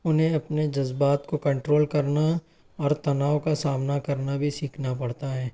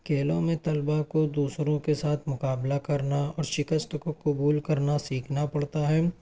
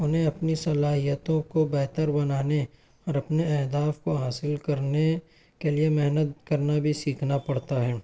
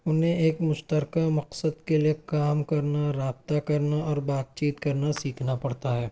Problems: none marked